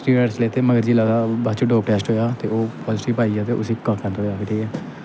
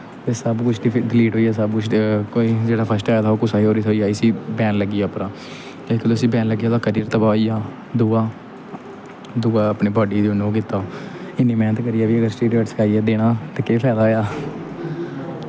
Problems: constant background noise